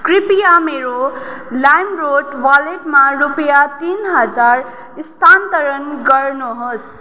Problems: none marked